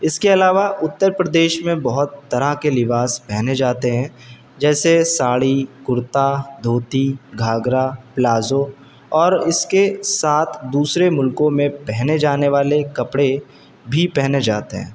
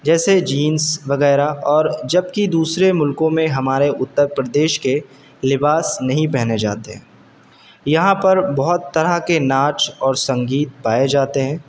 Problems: constant background noise